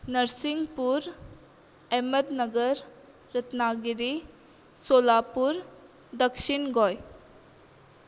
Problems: constant background noise